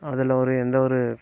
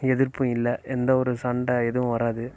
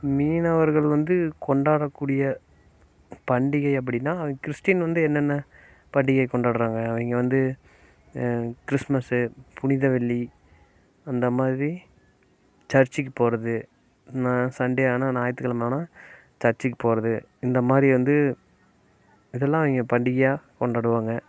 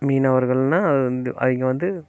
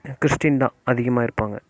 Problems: constant background noise